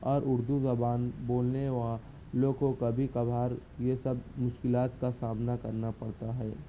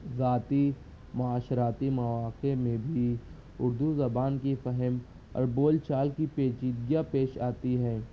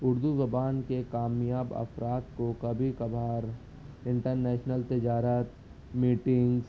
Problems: constant background noise